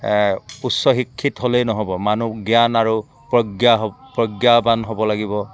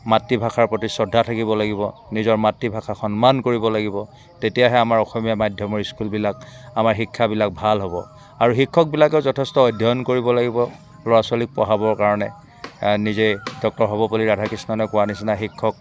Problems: constant background noise